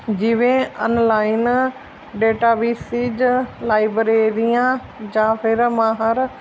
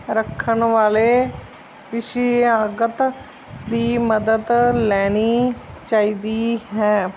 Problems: none marked